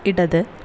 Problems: constant background noise